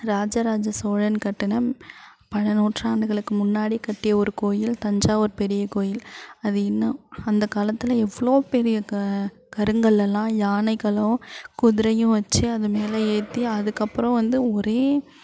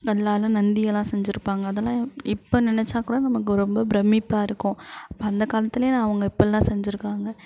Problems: none marked